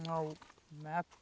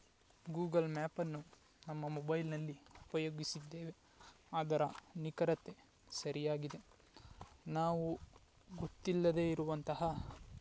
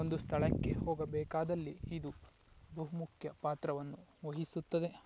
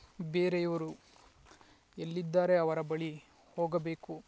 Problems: background sounds at intervals